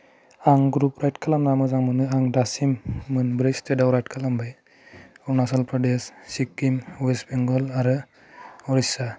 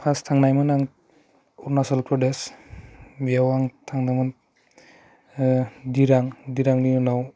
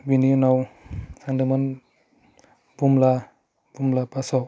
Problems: low volume